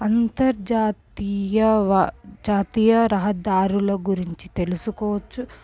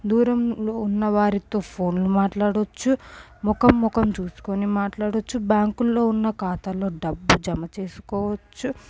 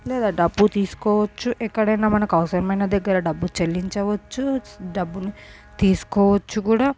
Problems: background sounds at intervals